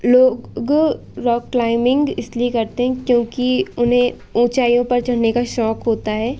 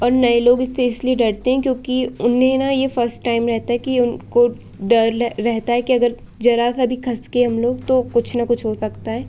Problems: constant background noise